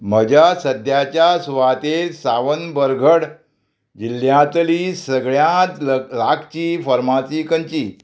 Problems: constant background noise